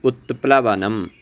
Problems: none marked